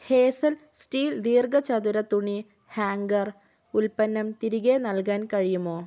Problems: none marked